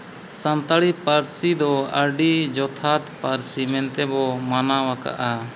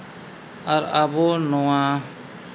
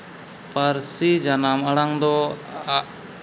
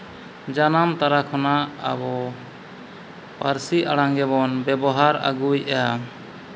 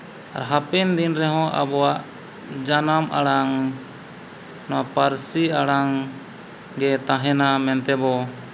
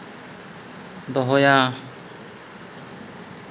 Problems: constant background noise